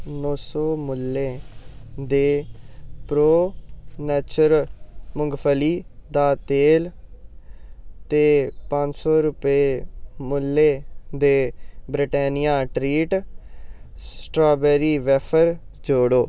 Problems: background sounds at intervals